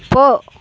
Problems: none marked